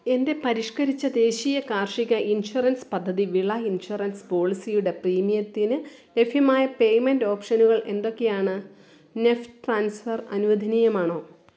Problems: none marked